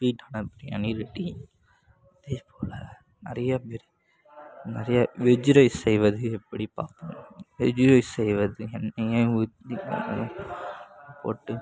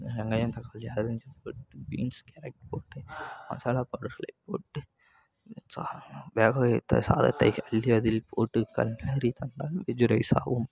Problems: background sounds at intervals